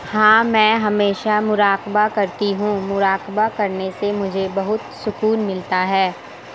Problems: constant background noise